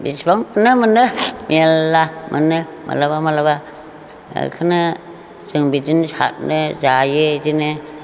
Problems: constant background noise